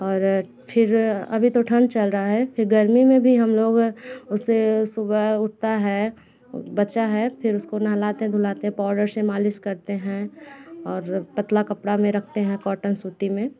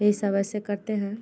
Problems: continuous background conversations